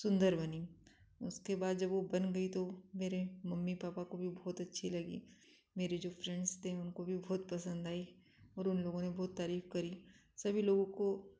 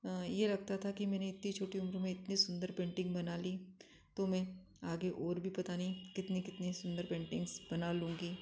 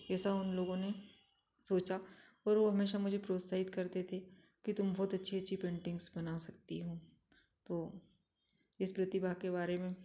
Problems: none marked